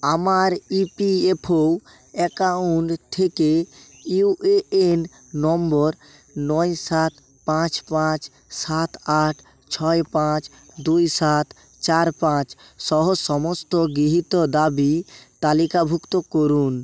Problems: constant background noise, background conversations at intervals